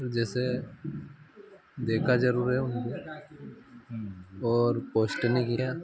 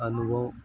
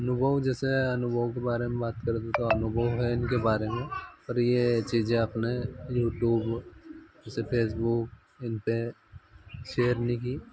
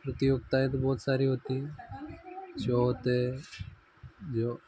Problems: none marked